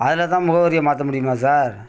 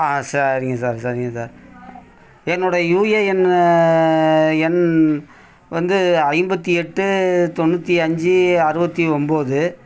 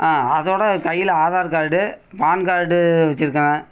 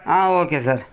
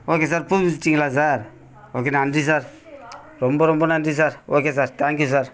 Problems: constant background noise, continuous background conversations